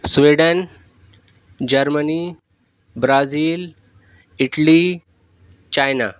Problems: none marked